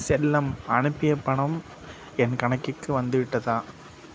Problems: constant background noise